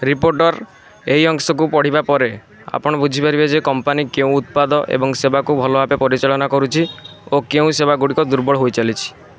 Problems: constant background noise